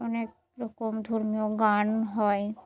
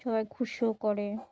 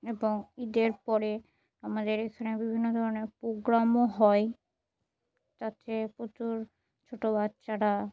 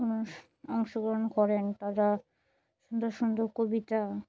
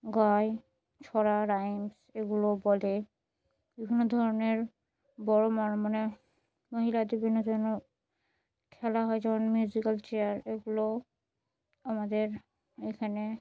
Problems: none marked